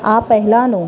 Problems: background conversations at intervals